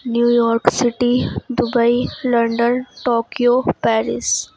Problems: constant background noise